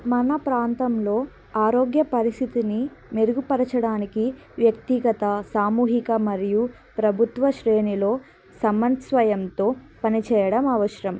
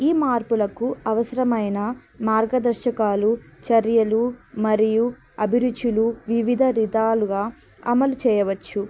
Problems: constant background noise, background conversations at intervals